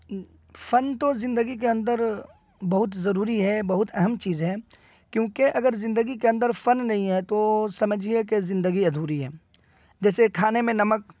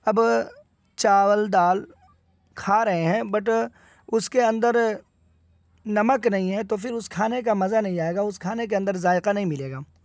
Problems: constant background noise